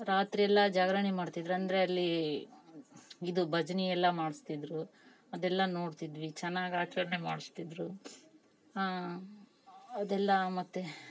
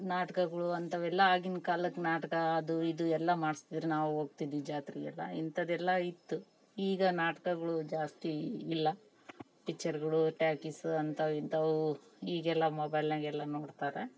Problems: background sounds at intervals